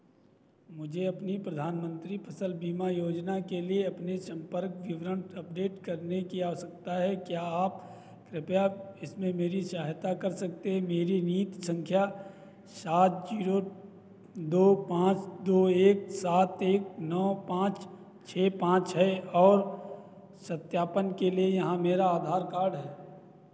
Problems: none marked